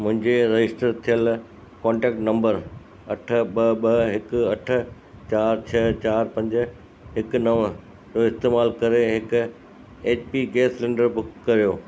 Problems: constant background noise